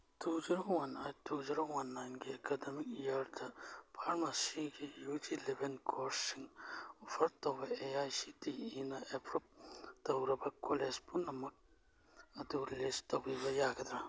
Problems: none marked